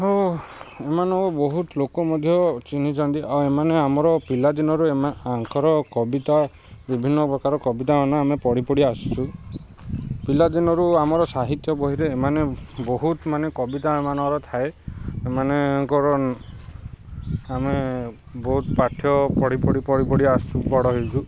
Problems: constant background noise